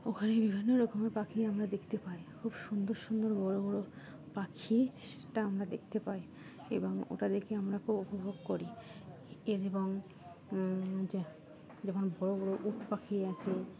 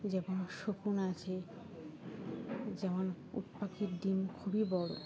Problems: constant background noise